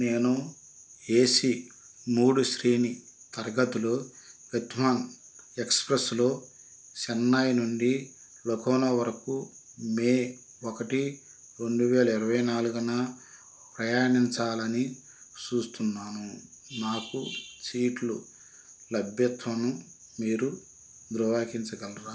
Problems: constant background noise